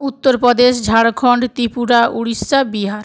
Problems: continuous background conversations